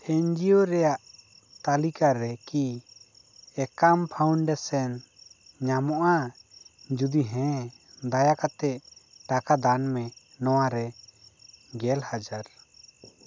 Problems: none marked